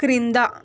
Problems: constant background noise